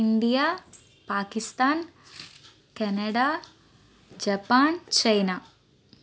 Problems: constant background noise